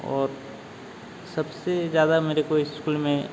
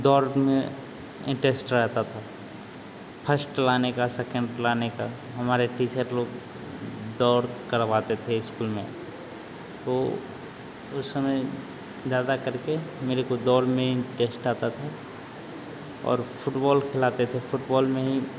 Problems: constant background noise